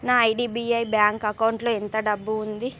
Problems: none marked